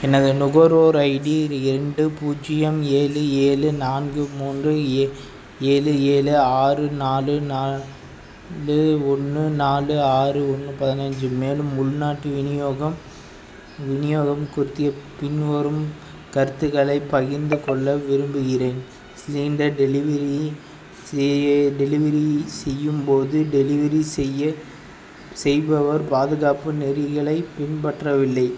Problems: constant background noise